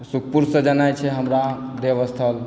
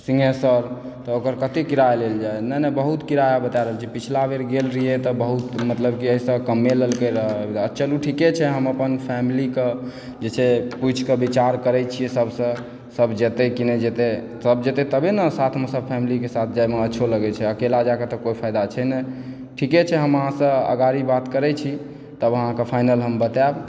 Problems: background sounds at intervals